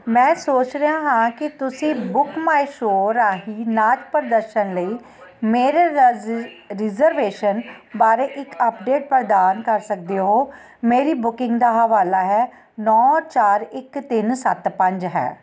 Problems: constant background noise